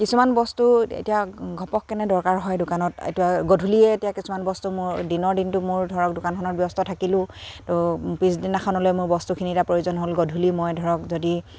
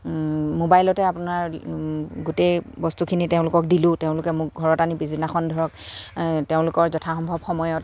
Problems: constant background noise, background conversations at intervals